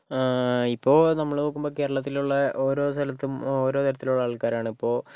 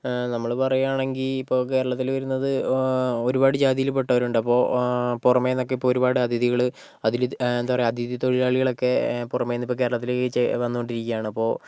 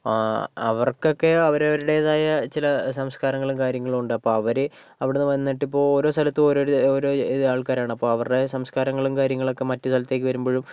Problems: background sounds at intervals